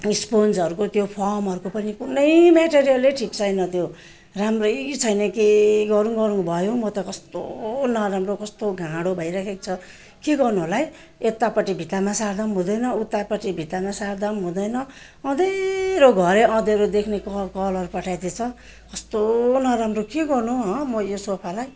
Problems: constant background noise